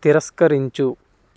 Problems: constant background noise